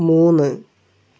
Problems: none marked